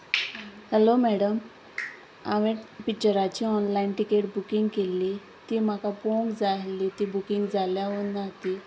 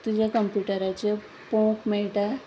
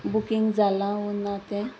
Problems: none marked